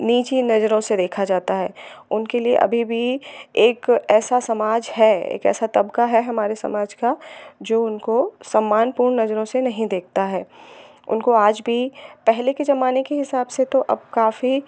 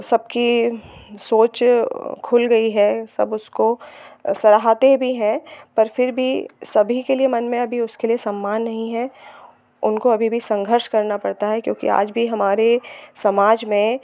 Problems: none marked